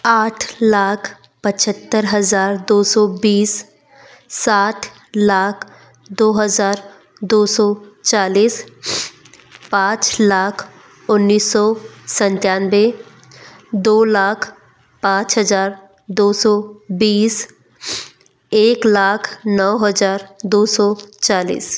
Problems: background sounds at intervals